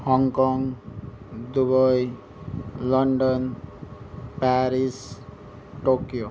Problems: background sounds at intervals